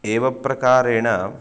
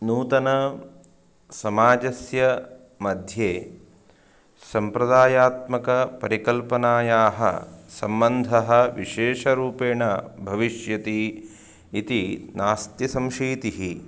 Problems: background sounds at intervals